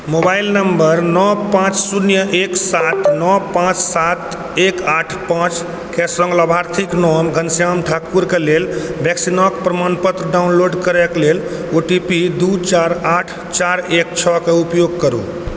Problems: background sounds at intervals